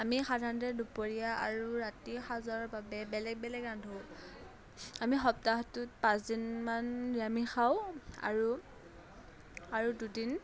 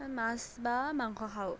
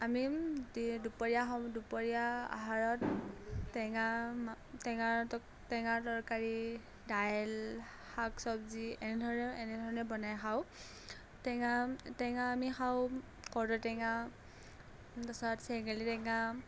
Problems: none marked